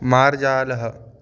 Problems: background conversations at intervals